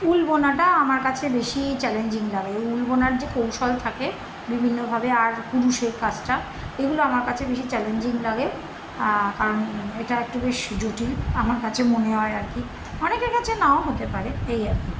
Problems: constant background noise